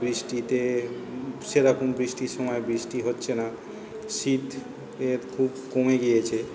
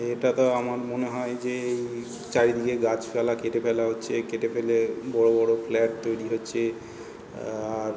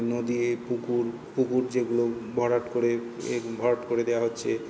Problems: constant background noise